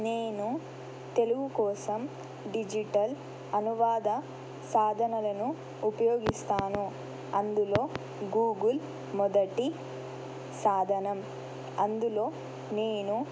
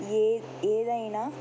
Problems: constant background noise